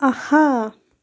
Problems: constant background noise